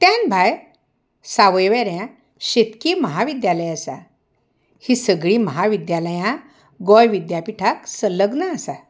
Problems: background sounds at intervals